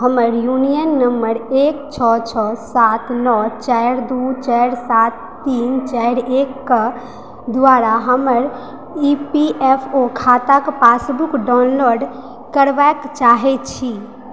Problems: background sounds at intervals